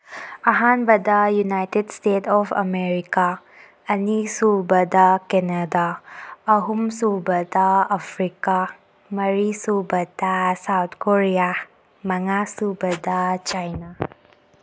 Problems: background sounds at intervals